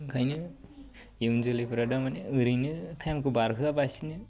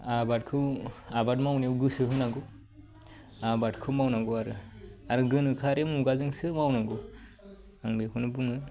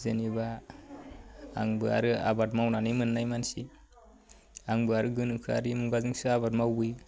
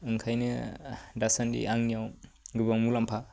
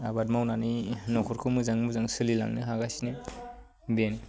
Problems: low volume